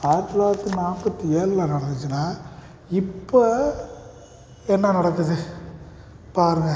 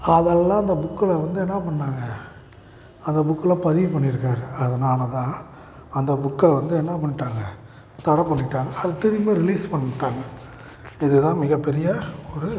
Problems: background sounds at intervals